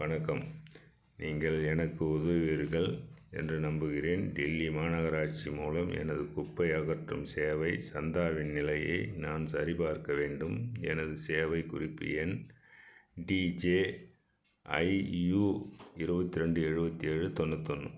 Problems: none marked